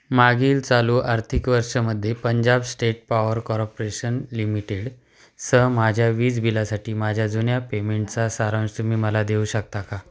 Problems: none marked